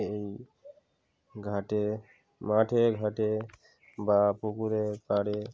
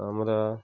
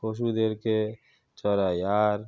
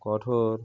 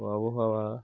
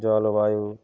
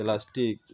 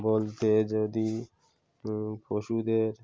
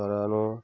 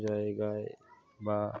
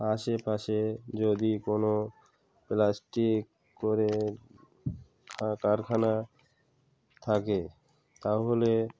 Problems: background sounds at intervals, continuous background conversations